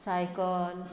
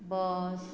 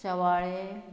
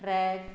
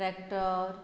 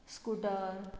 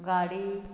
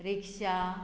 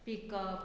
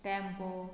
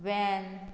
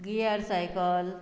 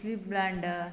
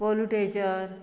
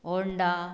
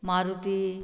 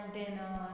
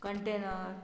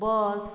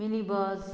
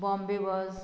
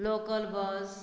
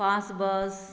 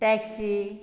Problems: none marked